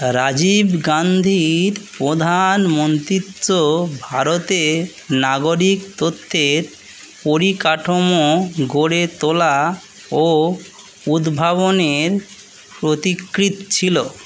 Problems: none marked